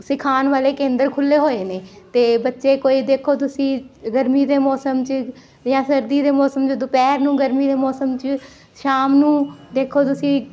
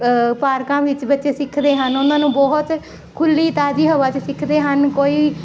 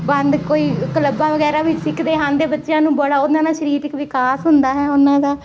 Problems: constant background noise